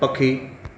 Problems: constant background noise, echo